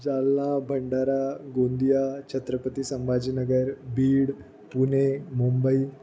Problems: none marked